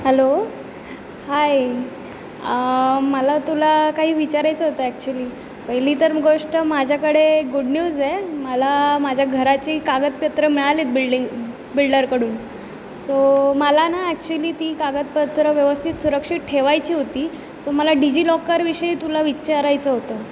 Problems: none marked